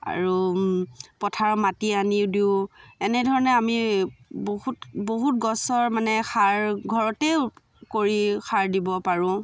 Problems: background sounds at intervals, background conversations at intervals